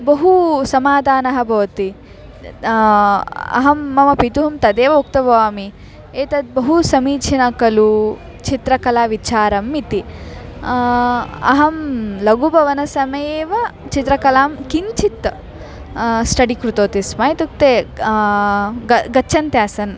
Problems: background conversations at intervals